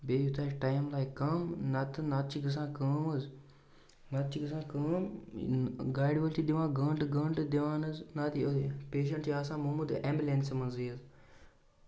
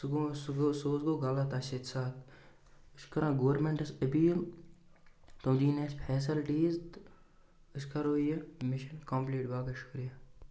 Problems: constant background noise